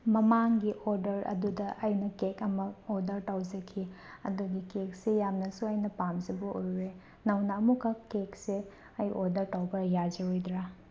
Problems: none marked